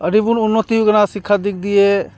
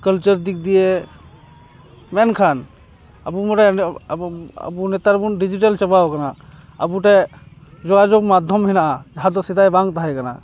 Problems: background sounds at intervals, background conversations at intervals